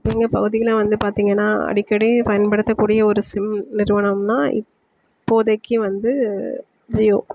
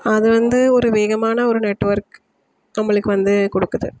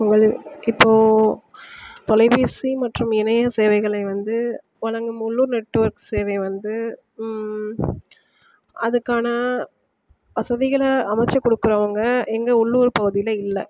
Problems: constant background noise